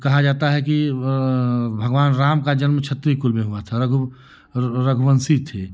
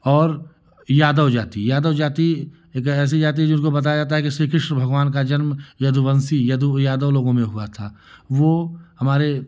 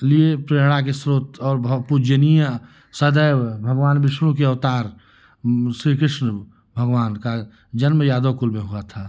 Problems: none marked